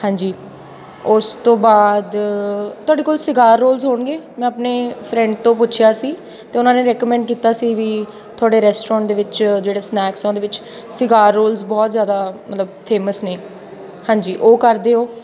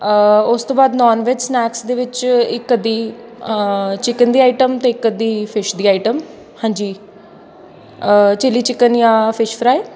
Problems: constant background noise, background conversations at intervals